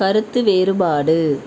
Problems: constant background noise